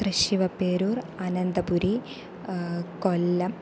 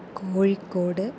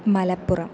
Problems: constant background noise